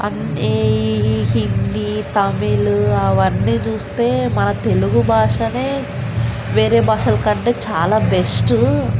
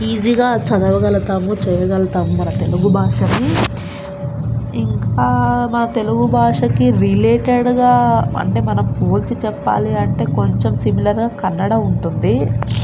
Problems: constant background noise